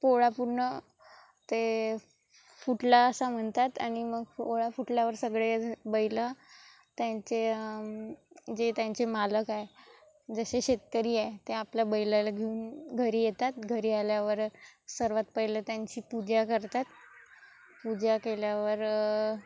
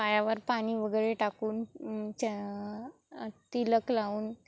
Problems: constant background noise, continuous background conversations